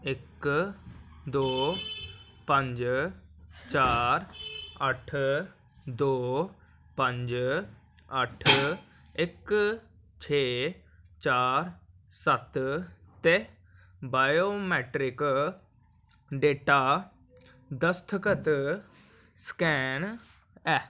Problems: none marked